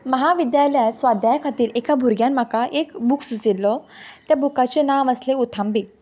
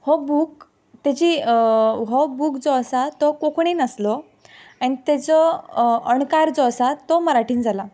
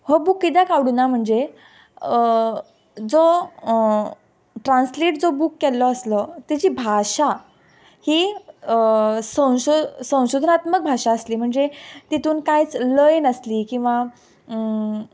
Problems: background sounds at intervals